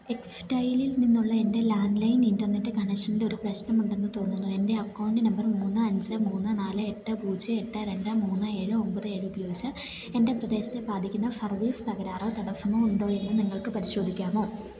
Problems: none marked